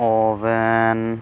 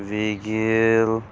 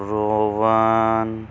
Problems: none marked